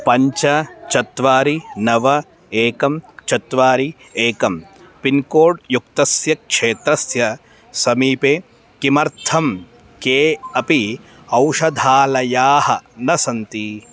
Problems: constant background noise